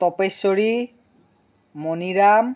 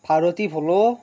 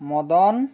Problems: background conversations at intervals